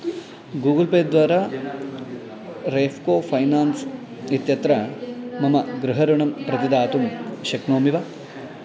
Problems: background sounds at intervals